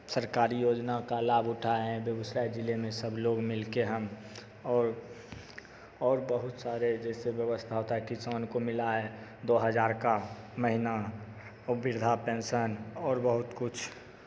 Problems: constant background noise, echo